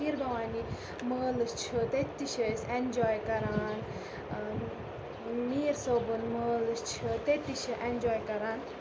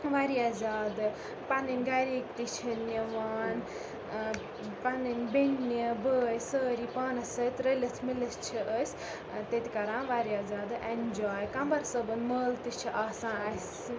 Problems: constant background noise, background conversations at intervals